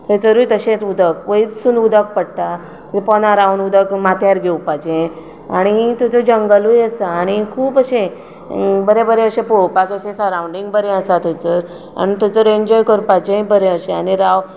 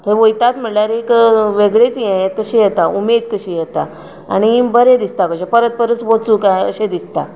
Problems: none marked